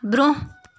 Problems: background sounds at intervals